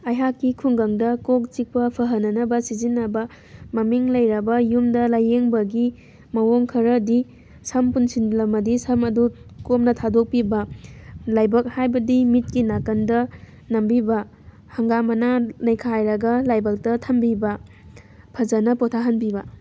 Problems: background sounds at intervals